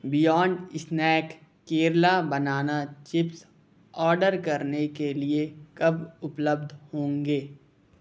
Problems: constant background noise